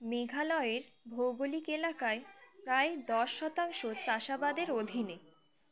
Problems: constant background noise, continuous background conversations